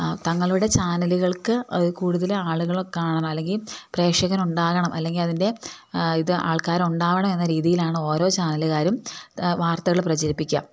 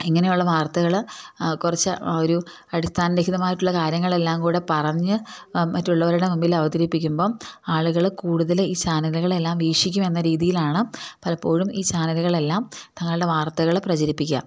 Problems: none marked